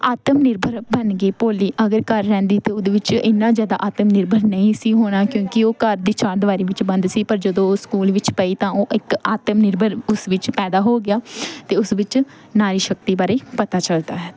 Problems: none marked